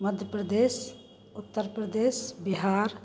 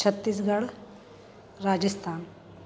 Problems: constant background noise